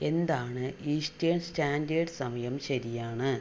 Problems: low volume